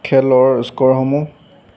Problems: constant background noise